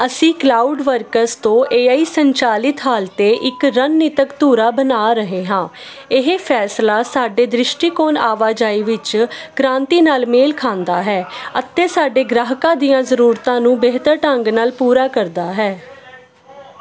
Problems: continuous background conversations